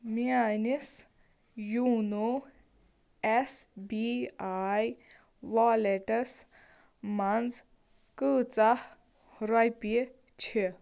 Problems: none marked